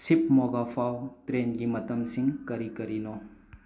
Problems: background sounds at intervals